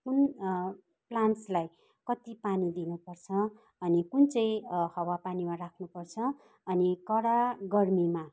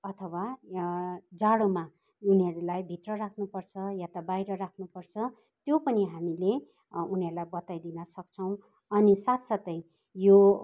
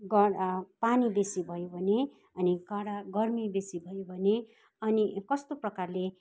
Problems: background sounds at intervals